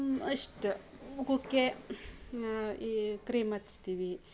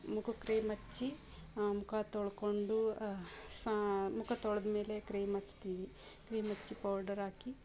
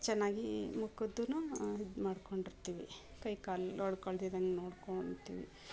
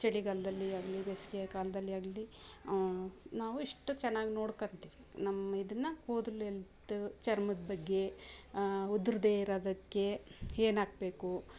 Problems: background sounds at intervals